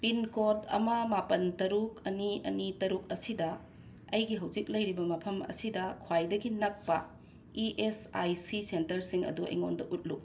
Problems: background sounds at intervals